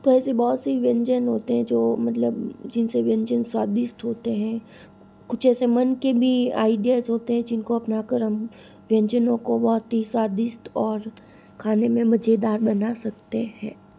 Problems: constant background noise